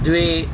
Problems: constant background noise